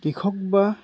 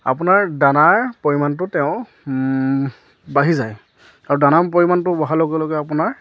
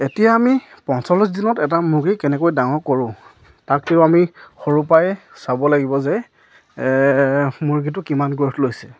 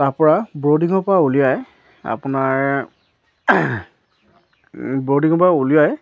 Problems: none marked